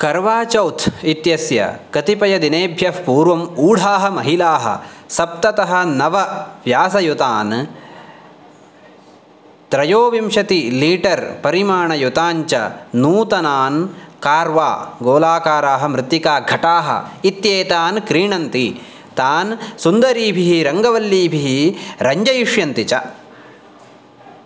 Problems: none marked